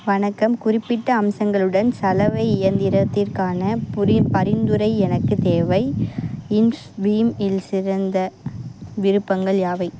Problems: constant background noise